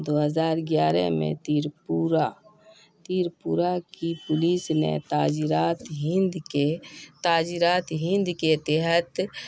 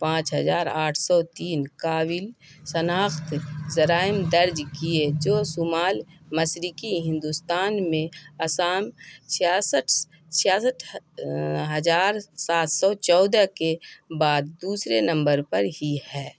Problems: constant background noise